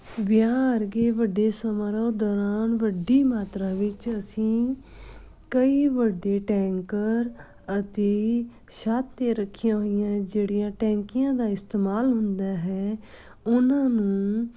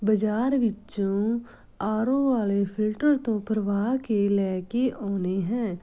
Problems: background sounds at intervals